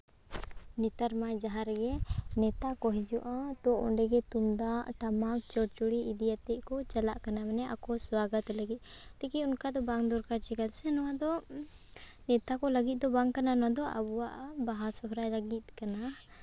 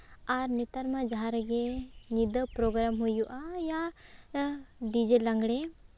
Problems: background sounds at intervals